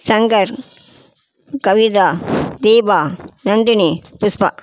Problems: none marked